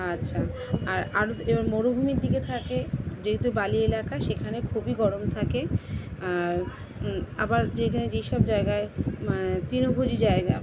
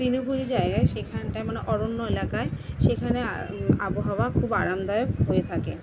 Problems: none marked